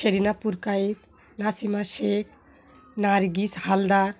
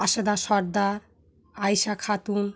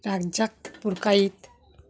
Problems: background sounds at intervals, background conversations at intervals